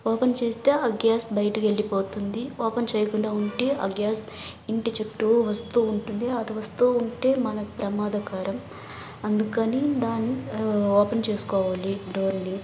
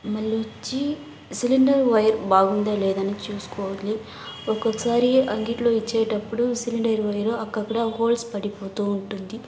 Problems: constant background noise, background conversations at intervals